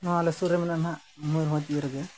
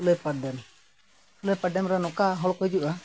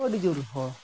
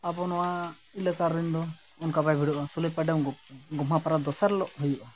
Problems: background sounds at intervals